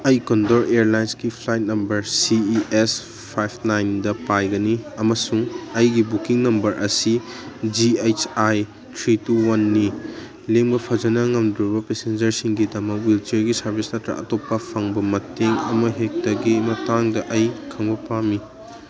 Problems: background conversations at intervals